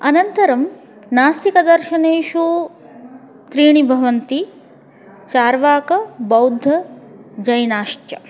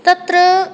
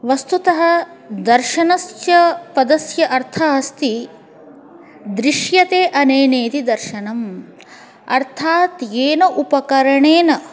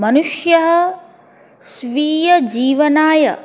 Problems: continuous background conversations